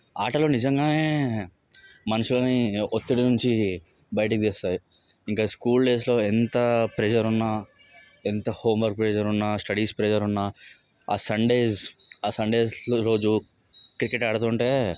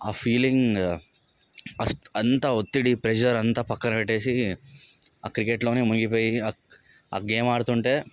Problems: background sounds at intervals, background conversations at intervals